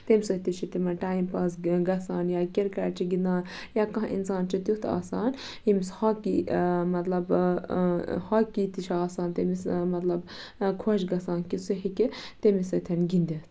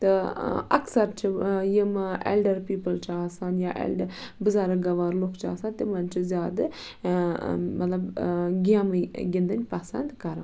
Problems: background sounds at intervals